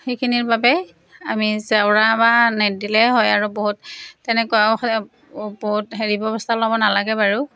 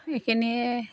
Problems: none marked